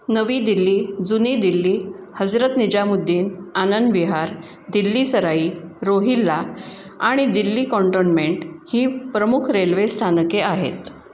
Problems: none marked